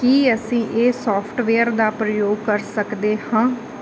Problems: constant background noise